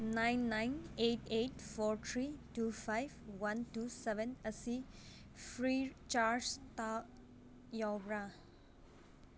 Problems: none marked